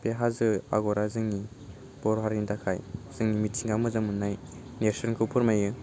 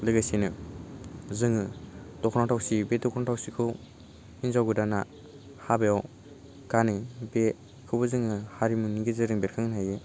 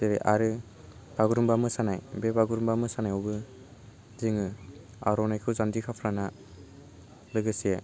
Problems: low volume